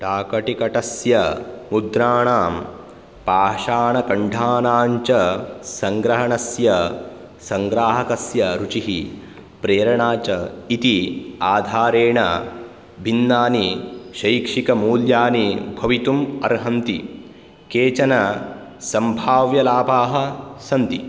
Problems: none marked